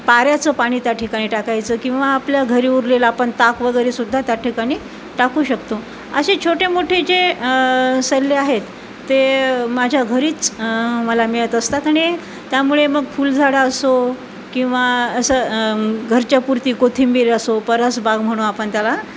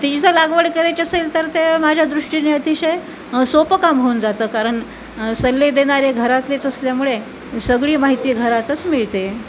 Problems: constant background noise, background conversations at intervals